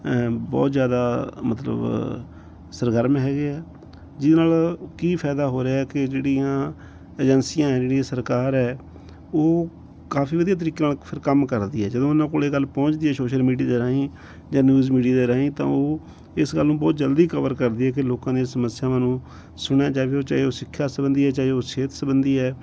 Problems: background sounds at intervals